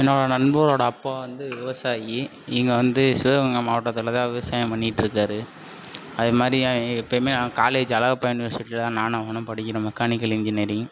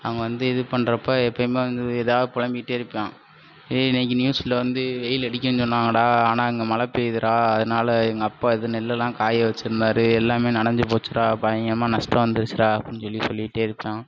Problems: constant background noise